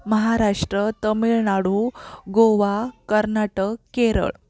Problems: background sounds at intervals, background conversations at intervals